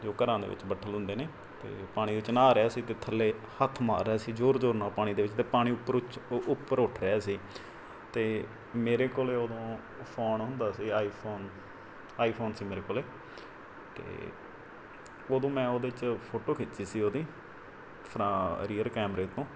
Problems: background sounds at intervals